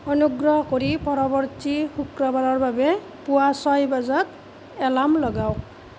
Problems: none marked